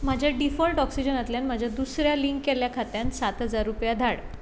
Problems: constant background noise